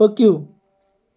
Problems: background sounds at intervals